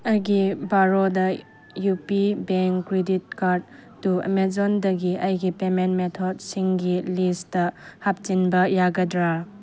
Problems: none marked